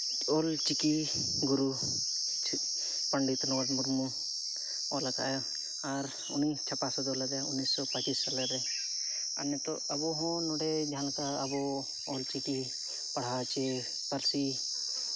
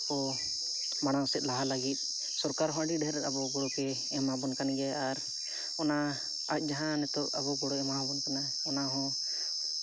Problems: constant background noise